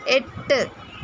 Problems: background sounds at intervals